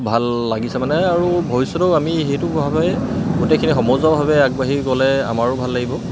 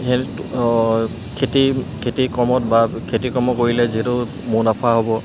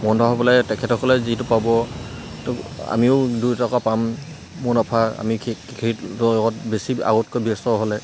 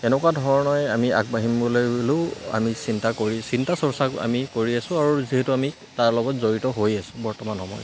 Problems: constant background noise